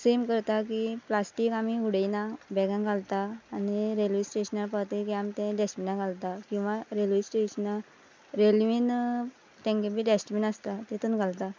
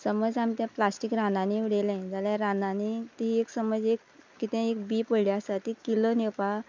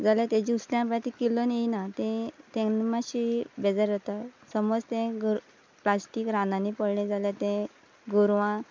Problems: none marked